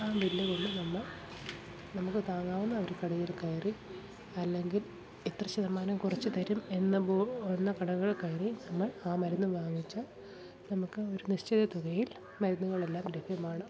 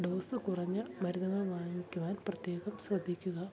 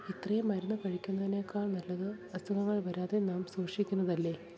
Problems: background sounds at intervals, continuous background conversations, low volume